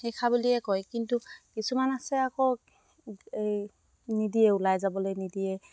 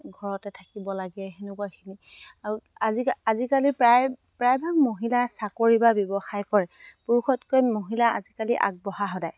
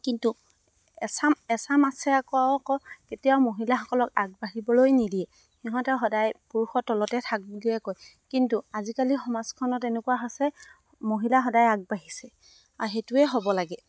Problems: constant background noise